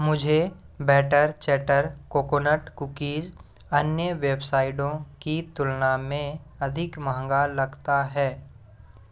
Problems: none marked